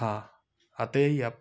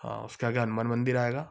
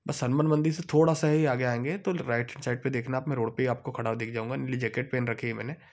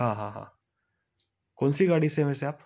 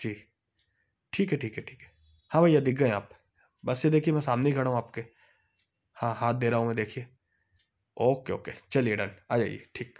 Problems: background sounds at intervals, background conversations at intervals